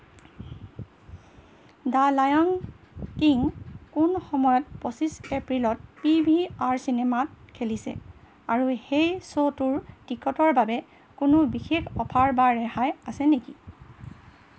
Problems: none marked